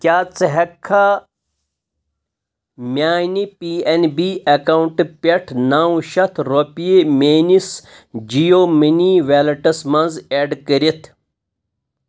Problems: none marked